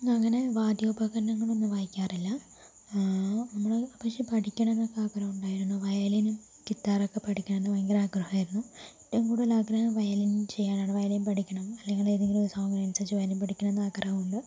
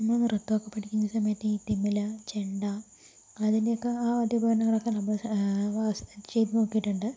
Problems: low volume